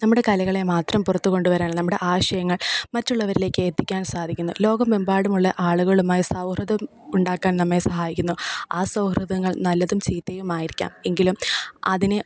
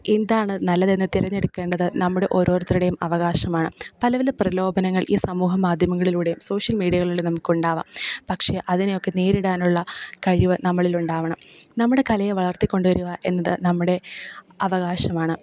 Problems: none marked